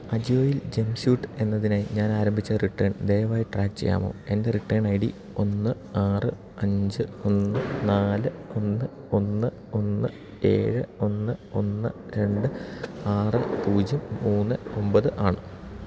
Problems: low volume